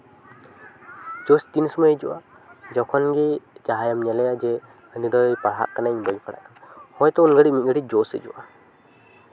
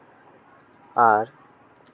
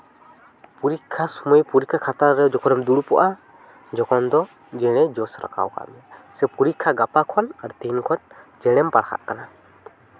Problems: background conversations at intervals